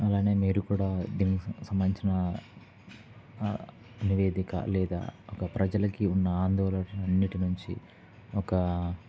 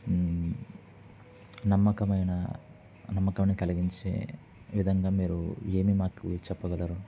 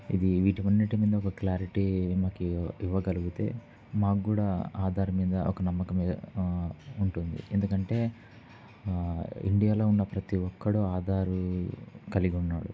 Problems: none marked